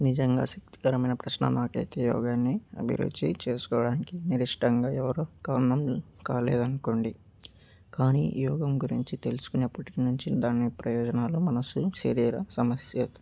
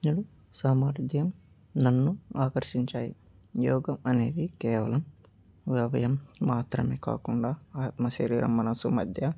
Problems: background sounds at intervals